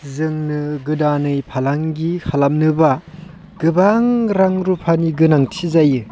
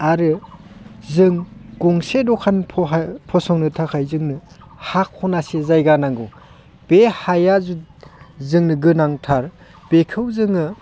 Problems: constant background noise